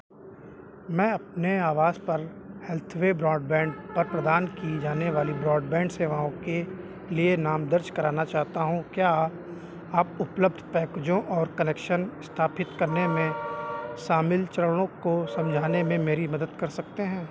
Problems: background sounds at intervals